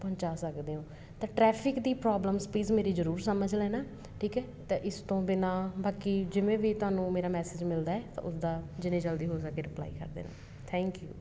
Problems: background sounds at intervals